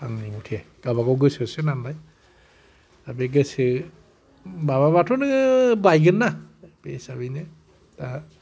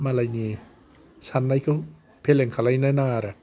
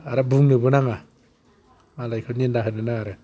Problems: none marked